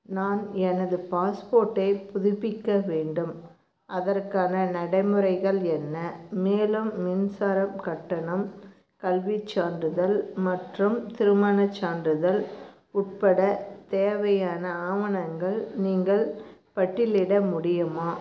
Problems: low volume